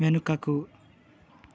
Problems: constant background noise